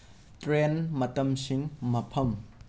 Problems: low volume